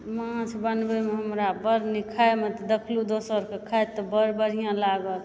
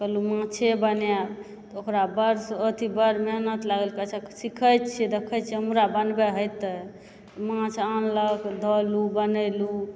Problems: background sounds at intervals